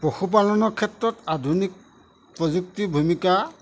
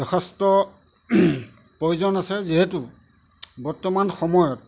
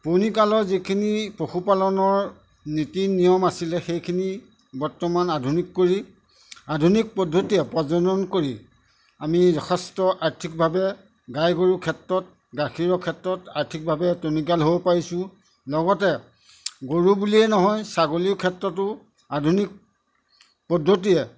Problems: none marked